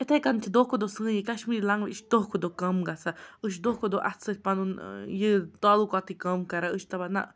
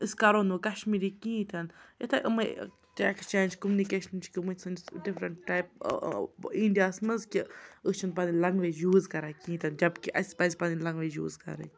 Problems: background conversations at intervals